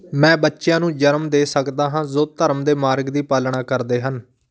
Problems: background conversations at intervals